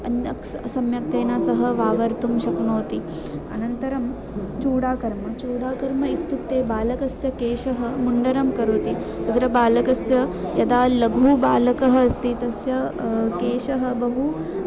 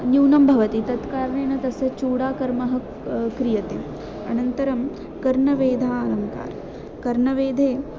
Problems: constant background noise, continuous background conversations